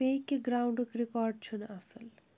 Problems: background sounds at intervals